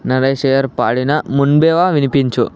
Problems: none marked